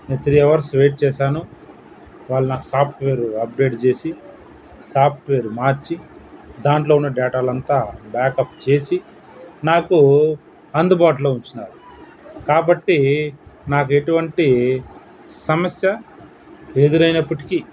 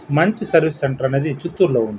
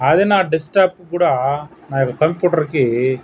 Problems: background sounds at intervals